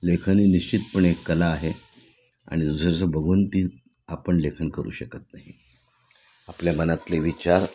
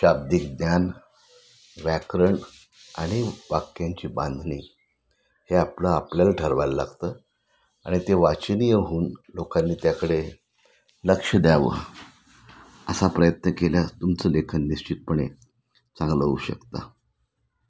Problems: none marked